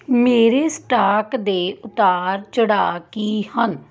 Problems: background sounds at intervals